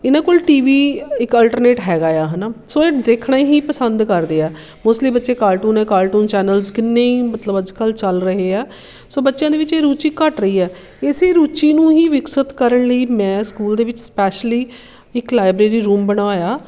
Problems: constant background noise